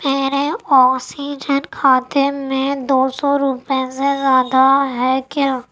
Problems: none marked